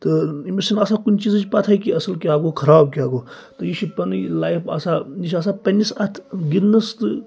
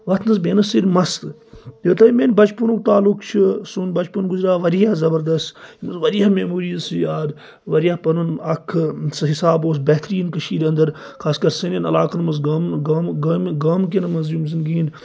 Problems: none marked